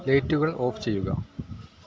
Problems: background sounds at intervals